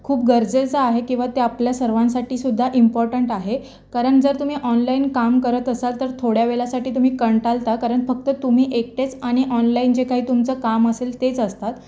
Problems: constant background noise